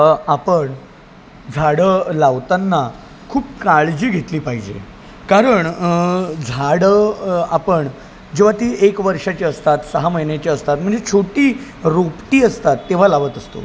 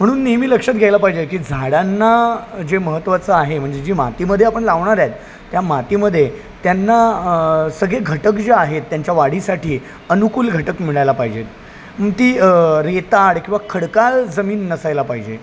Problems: none marked